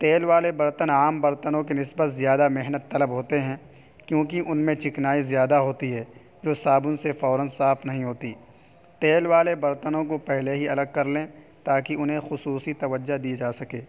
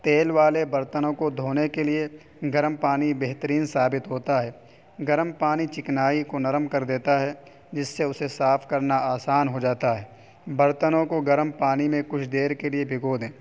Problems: constant background noise